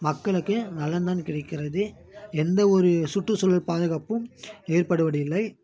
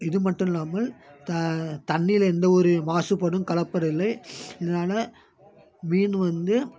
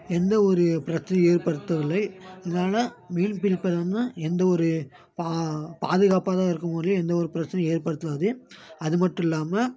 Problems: background conversations at intervals